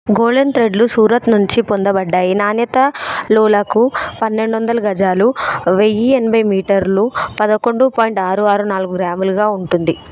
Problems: background sounds at intervals, background conversations at intervals